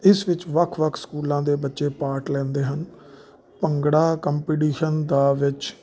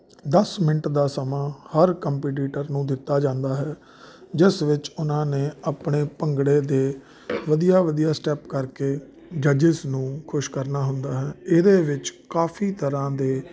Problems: none marked